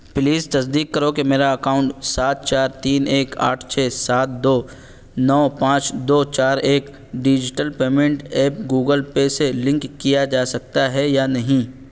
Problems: none marked